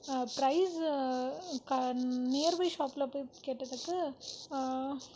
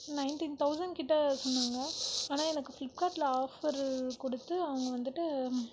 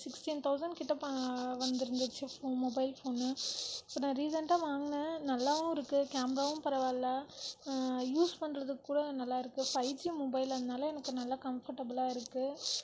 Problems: constant background noise, low volume